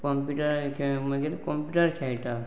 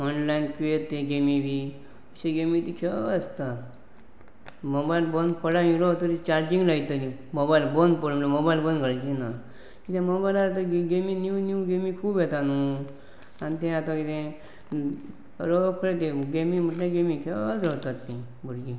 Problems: constant background noise